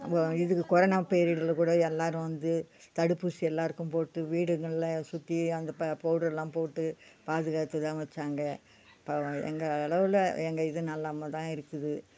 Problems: background sounds at intervals